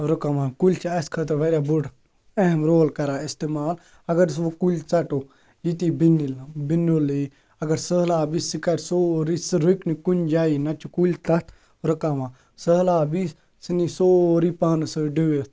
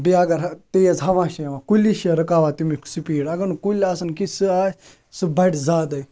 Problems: background sounds at intervals